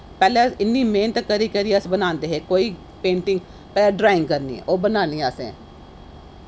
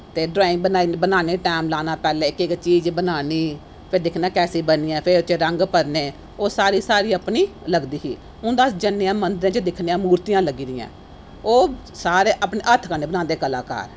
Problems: none marked